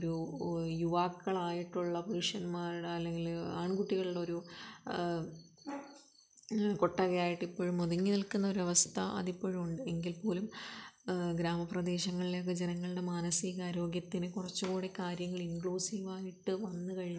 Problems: background sounds at intervals, low volume